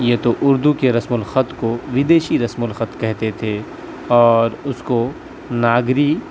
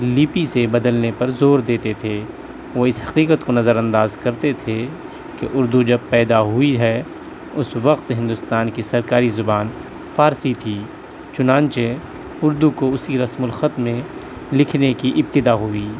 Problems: none marked